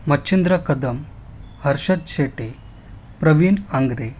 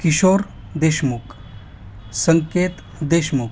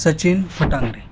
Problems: constant background noise